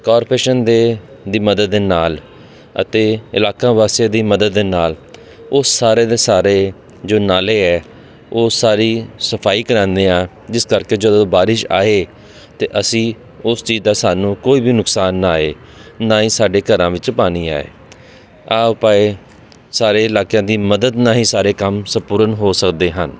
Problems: none marked